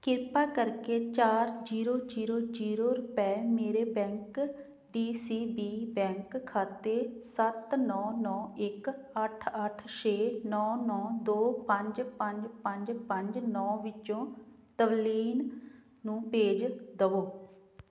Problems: none marked